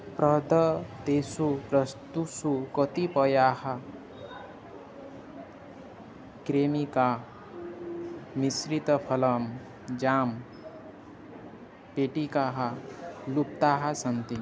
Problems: constant background noise, continuous background conversations